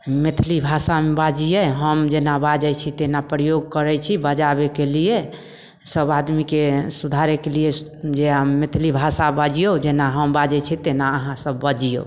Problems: none marked